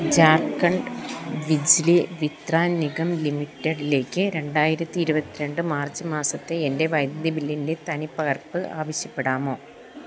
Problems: constant background noise